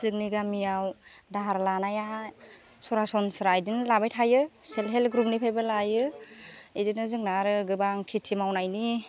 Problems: constant background noise